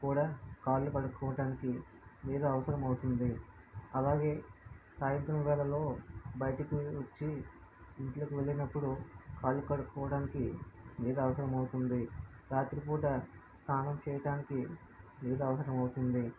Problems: low volume